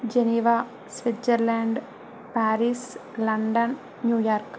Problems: none marked